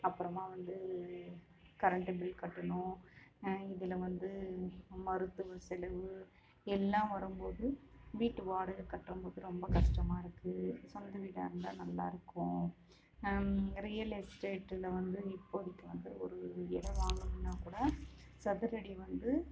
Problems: constant background noise, continuous background conversations, low volume